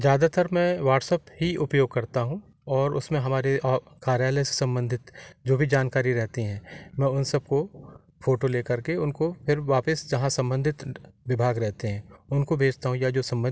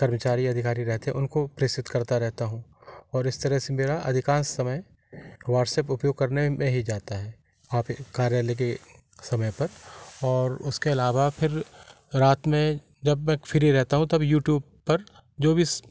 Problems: none marked